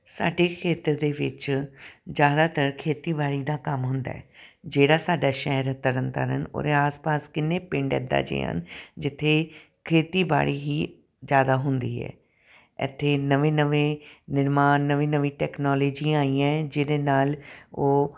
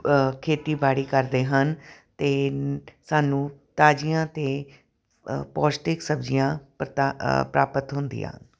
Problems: none marked